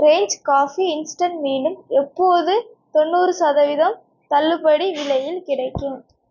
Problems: background sounds at intervals